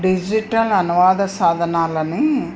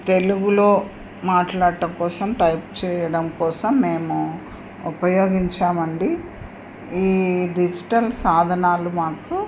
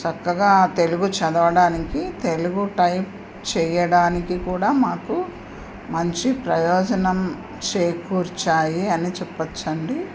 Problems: none marked